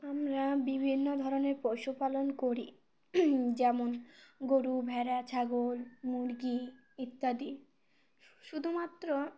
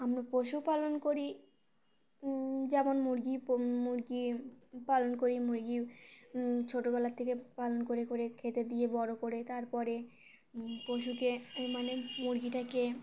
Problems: none marked